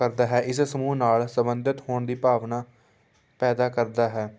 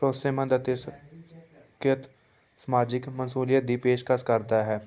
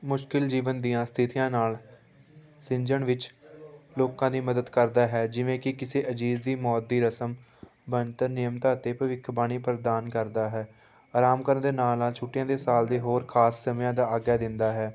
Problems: background sounds at intervals, background conversations at intervals